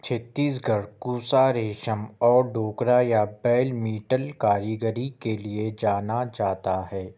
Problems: none marked